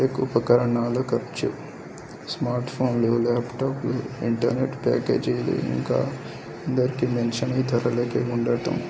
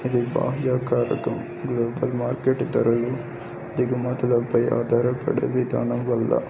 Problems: constant background noise, background conversations at intervals, low volume